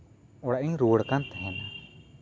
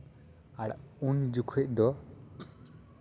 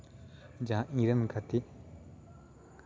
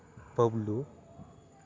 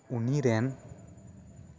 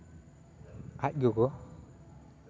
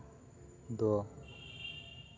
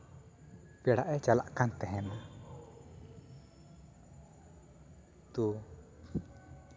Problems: constant background noise, continuous background conversations